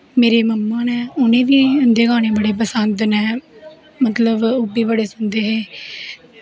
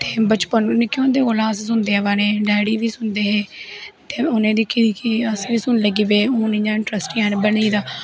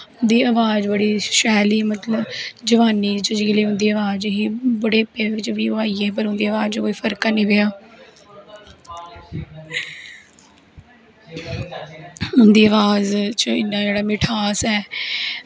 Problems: background sounds at intervals